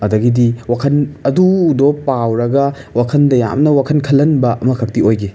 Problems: background sounds at intervals